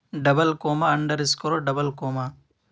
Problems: background sounds at intervals